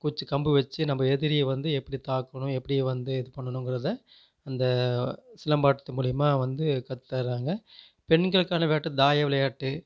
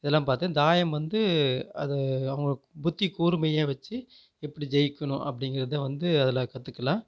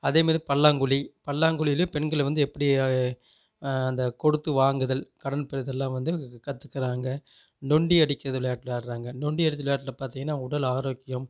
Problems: none marked